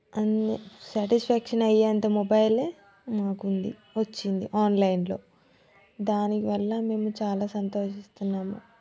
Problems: continuous background conversations